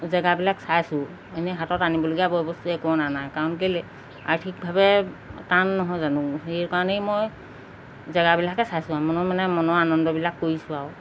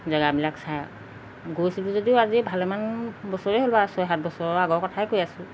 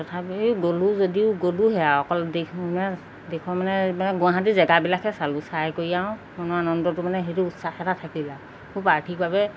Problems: constant background noise